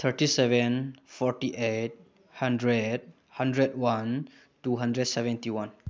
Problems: none marked